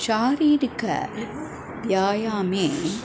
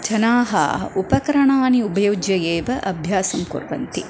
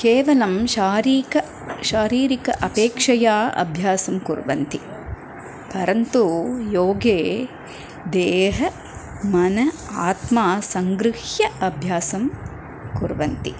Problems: constant background noise